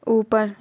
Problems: background sounds at intervals